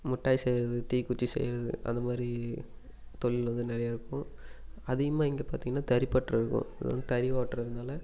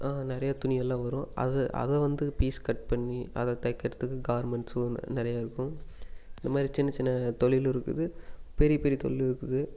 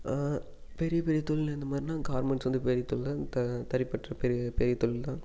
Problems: none marked